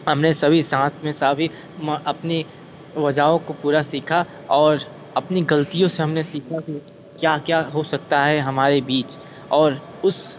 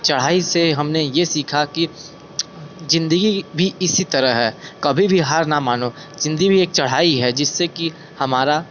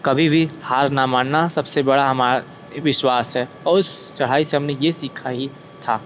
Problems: constant background noise